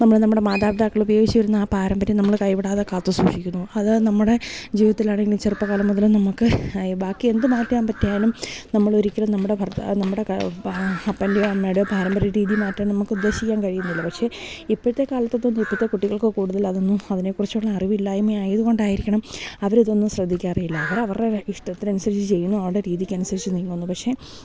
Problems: none marked